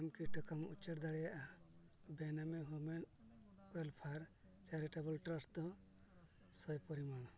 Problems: background sounds at intervals, low volume